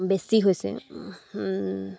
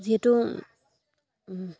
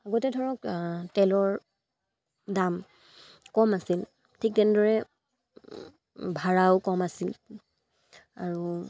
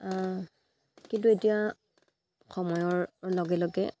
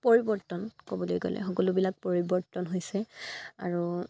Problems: none marked